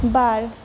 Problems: low volume